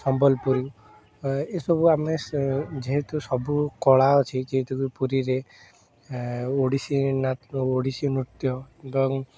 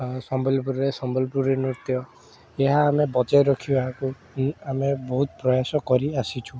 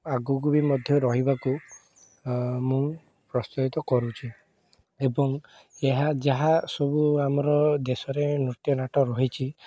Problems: constant background noise